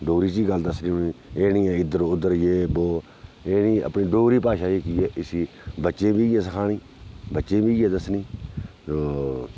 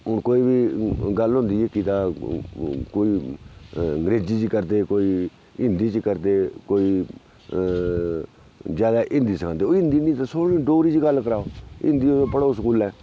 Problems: background sounds at intervals, low volume